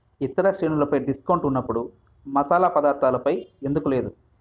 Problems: background sounds at intervals